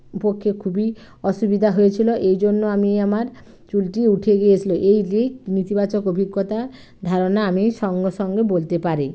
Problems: background sounds at intervals